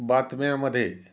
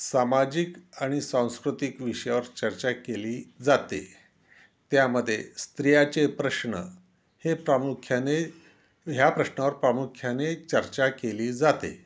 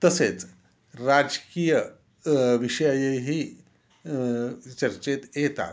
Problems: constant background noise